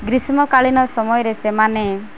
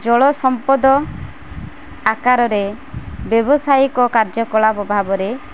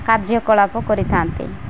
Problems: constant background noise